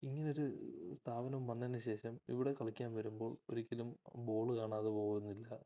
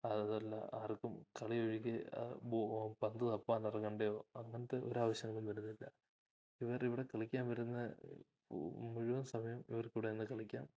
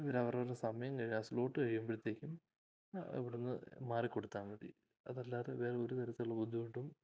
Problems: none marked